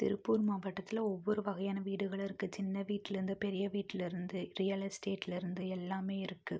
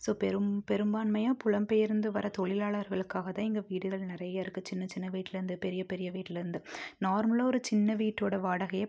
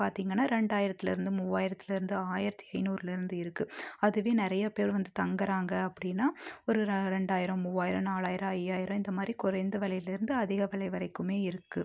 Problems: none marked